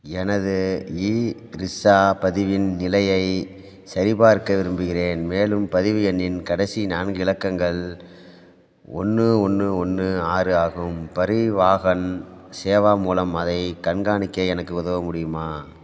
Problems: background sounds at intervals